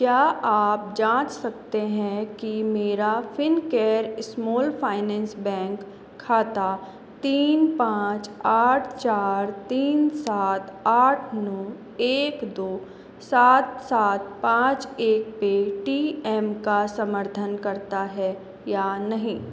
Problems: constant background noise